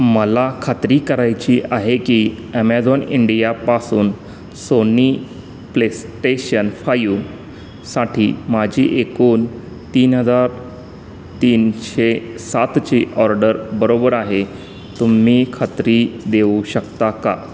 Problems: constant background noise